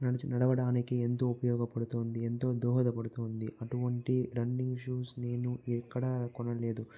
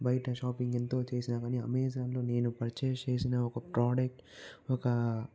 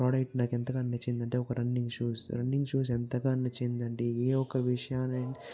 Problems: background sounds at intervals